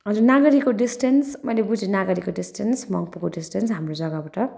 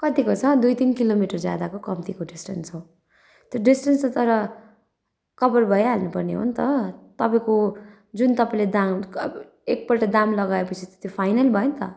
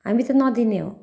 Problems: background sounds at intervals